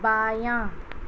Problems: constant background noise